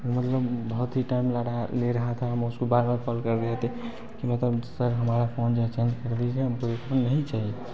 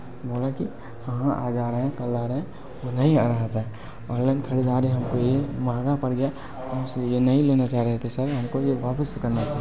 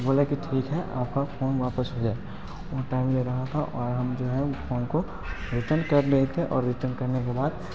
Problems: constant background noise